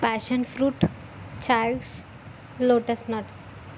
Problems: constant background noise